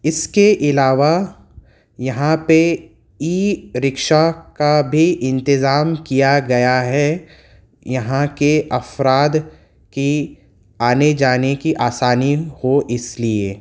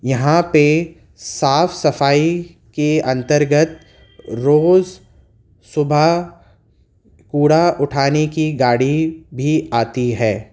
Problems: constant background noise